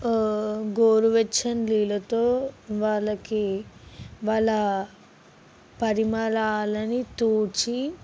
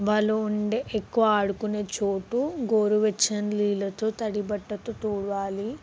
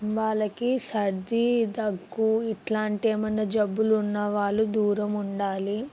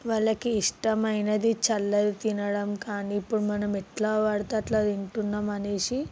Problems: background sounds at intervals